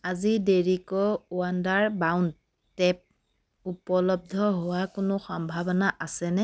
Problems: background sounds at intervals